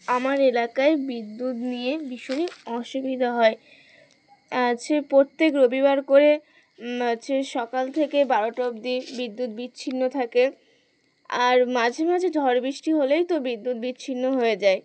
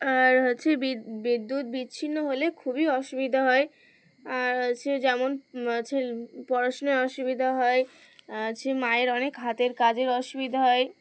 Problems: none marked